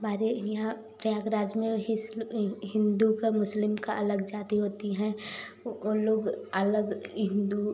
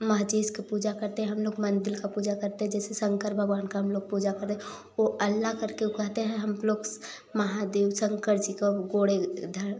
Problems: none marked